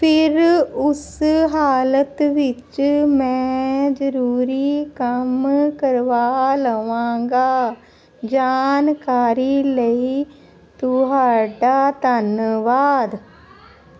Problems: none marked